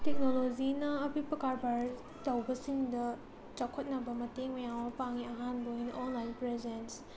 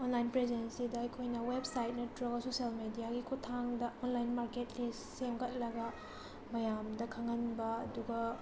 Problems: background sounds at intervals